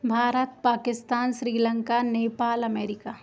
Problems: constant background noise